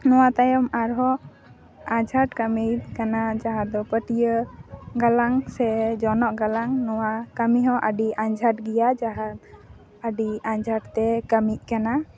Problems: none marked